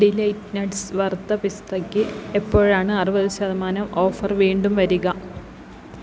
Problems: constant background noise